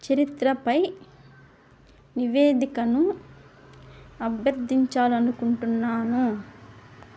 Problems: none marked